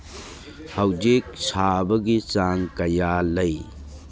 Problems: none marked